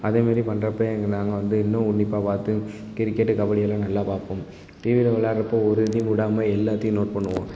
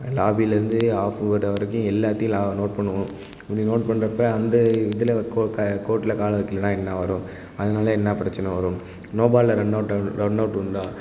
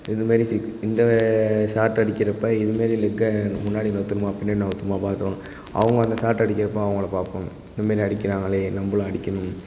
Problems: constant background noise